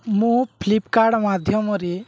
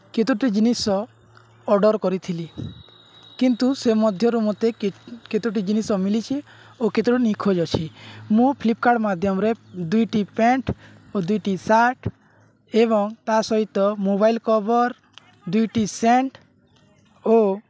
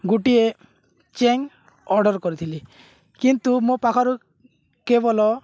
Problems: none marked